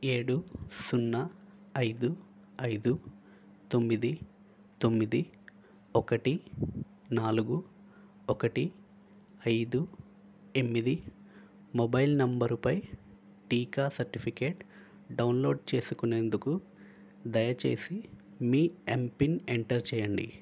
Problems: constant background noise